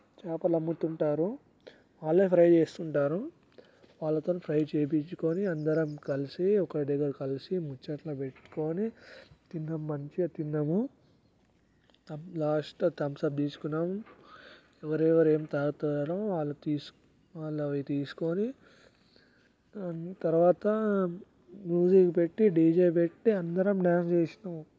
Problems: background sounds at intervals, low volume